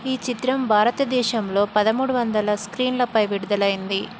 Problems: constant background noise